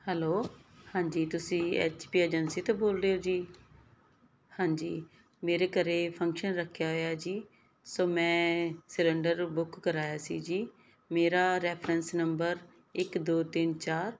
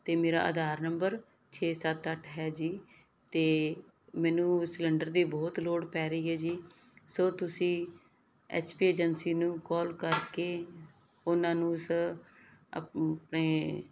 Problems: background sounds at intervals